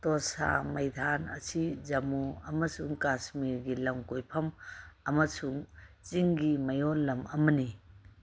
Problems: background sounds at intervals